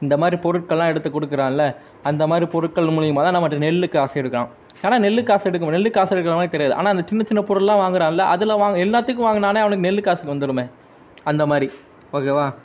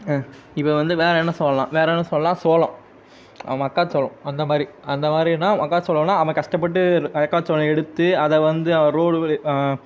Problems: background sounds at intervals